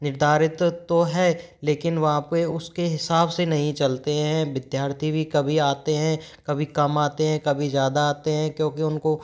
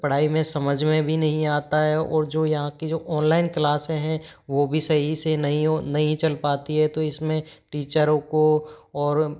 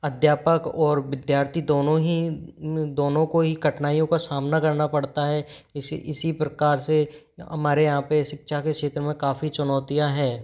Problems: background sounds at intervals